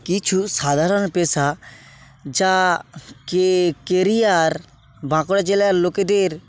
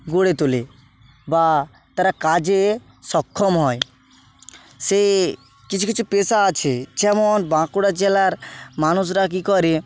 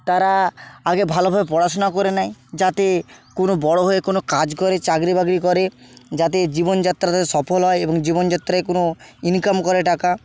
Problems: constant background noise